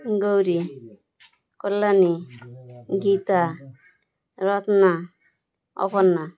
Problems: constant background noise, continuous background conversations